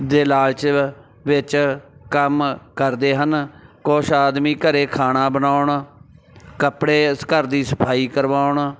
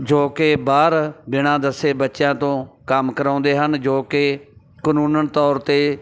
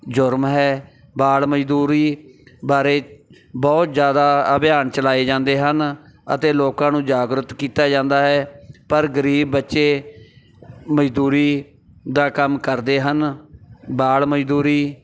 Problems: background sounds at intervals, background conversations at intervals